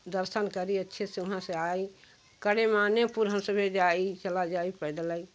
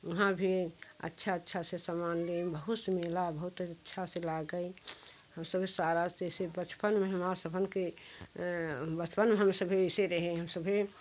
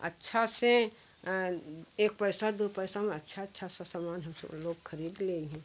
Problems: constant background noise